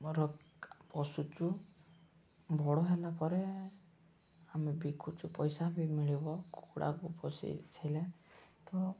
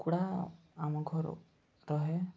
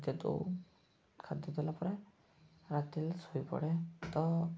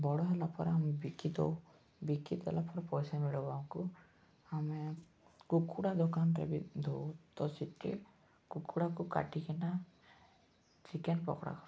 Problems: background sounds at intervals, low volume